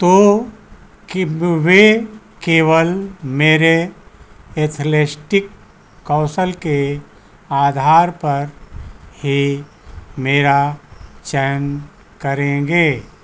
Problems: constant background noise